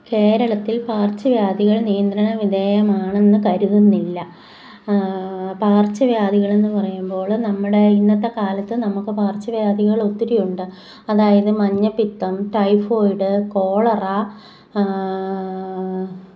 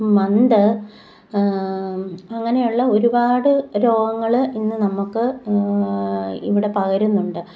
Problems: background sounds at intervals